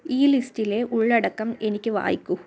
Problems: none marked